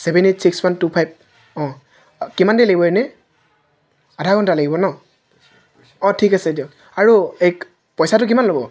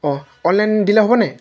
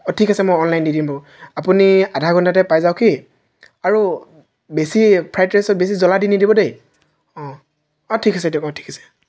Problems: none marked